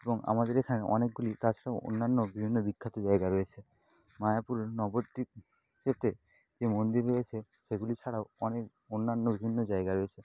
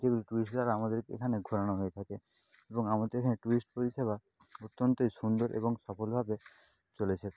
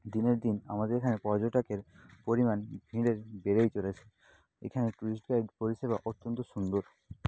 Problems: constant background noise